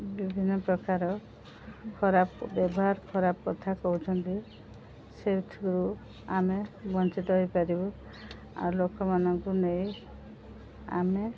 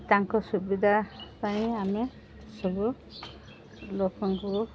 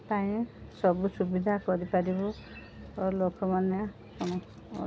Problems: none marked